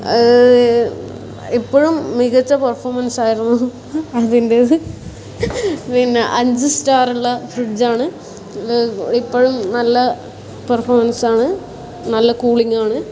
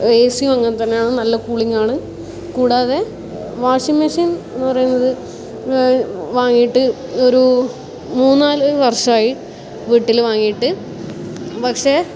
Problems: background sounds at intervals